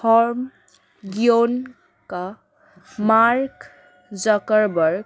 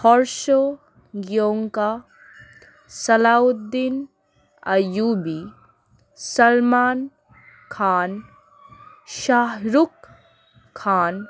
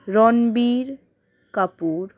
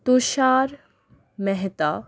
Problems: none marked